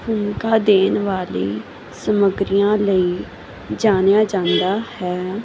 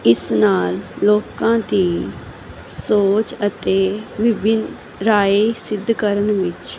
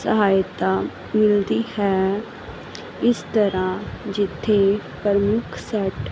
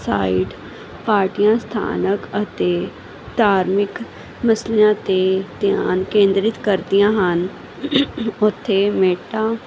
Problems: constant background noise